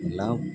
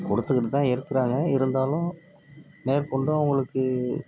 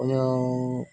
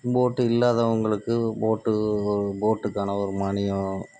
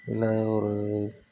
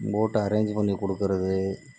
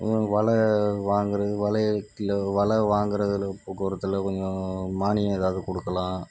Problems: background sounds at intervals, low volume